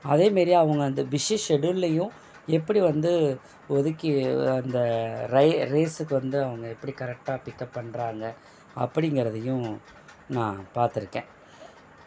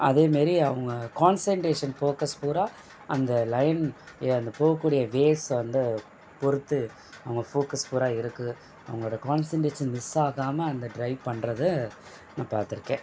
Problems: constant background noise